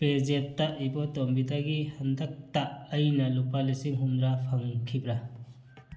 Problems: none marked